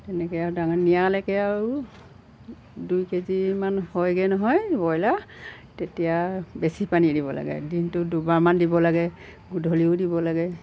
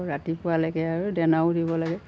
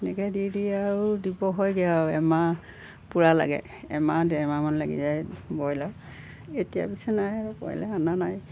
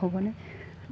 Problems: background sounds at intervals